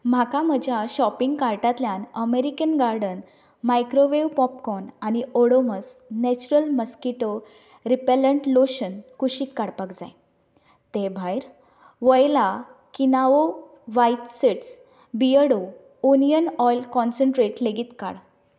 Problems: background conversations at intervals